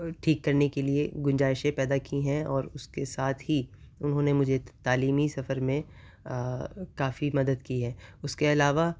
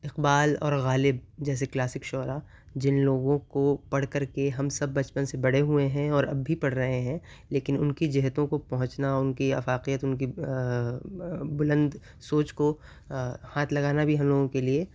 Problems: constant background noise